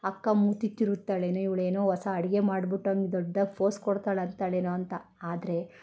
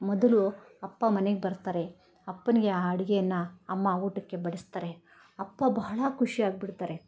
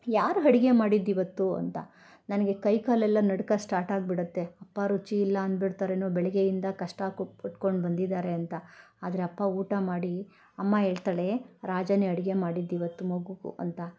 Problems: none marked